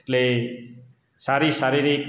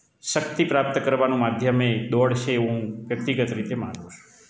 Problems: background sounds at intervals